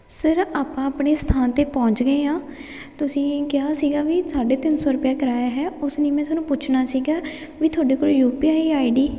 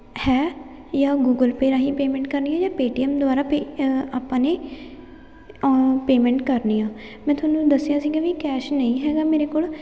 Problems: none marked